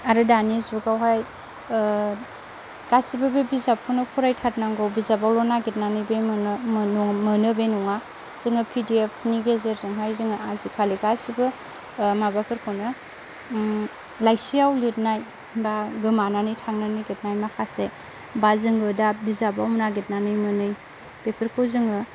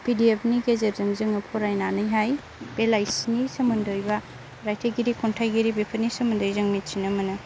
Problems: constant background noise